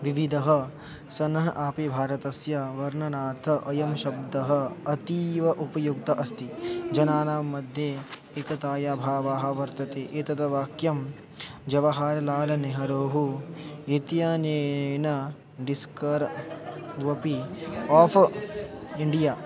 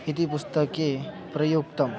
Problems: constant background noise, continuous background conversations